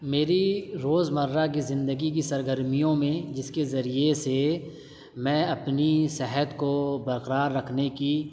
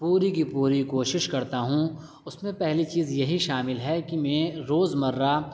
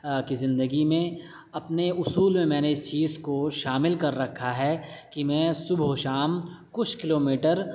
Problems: none marked